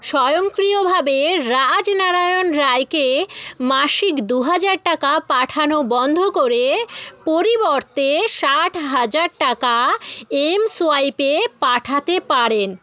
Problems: constant background noise